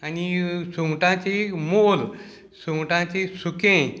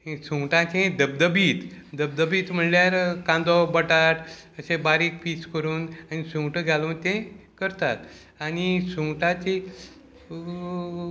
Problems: constant background noise